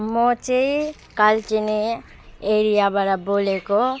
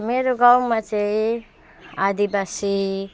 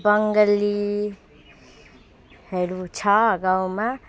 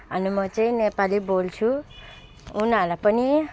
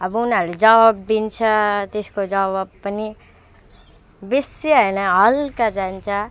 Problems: none marked